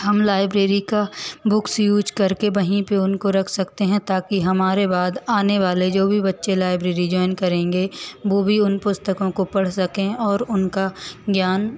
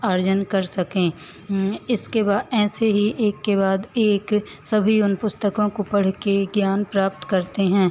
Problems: constant background noise, echo